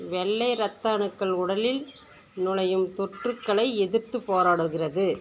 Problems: background sounds at intervals